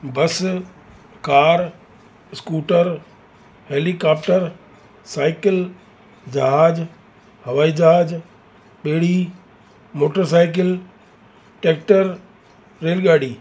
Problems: constant background noise